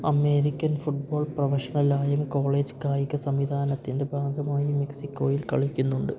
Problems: low volume